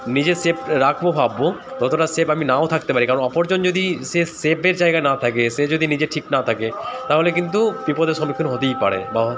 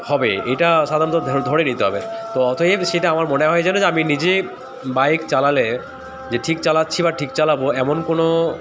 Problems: constant background noise